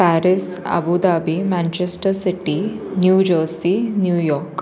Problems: none marked